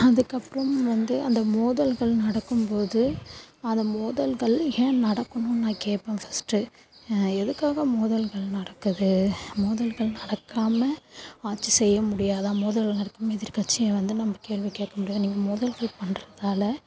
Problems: background sounds at intervals, low volume